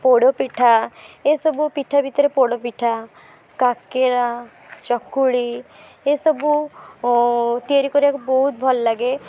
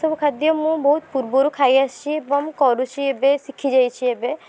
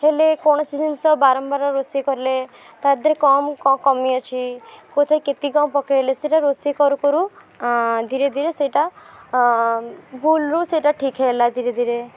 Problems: background sounds at intervals